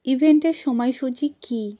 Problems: constant background noise